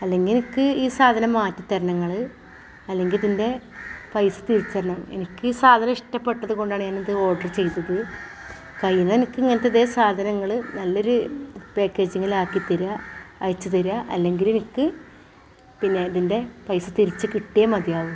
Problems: background sounds at intervals